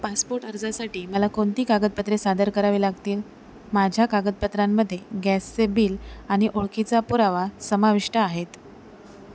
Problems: constant background noise